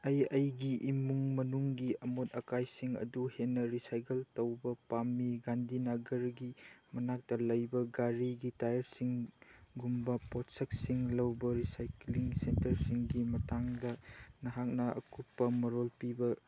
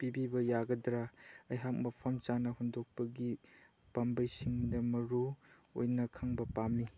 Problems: none marked